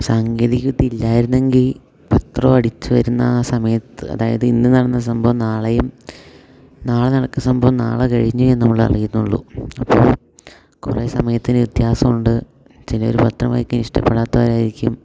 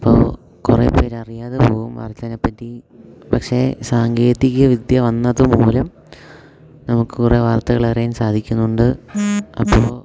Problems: none marked